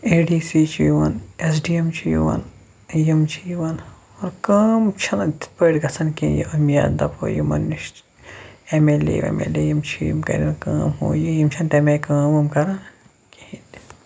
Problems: background sounds at intervals